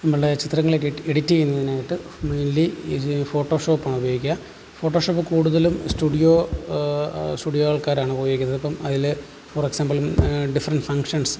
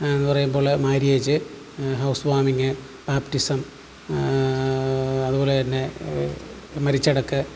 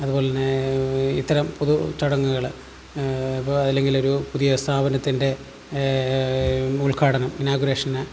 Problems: background sounds at intervals, low volume